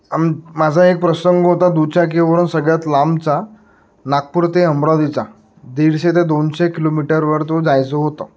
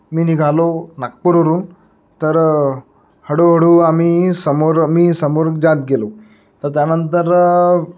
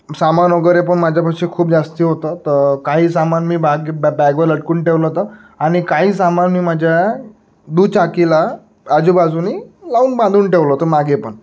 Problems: background sounds at intervals